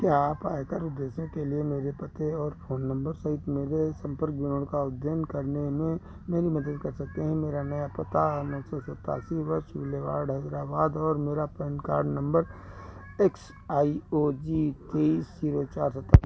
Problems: constant background noise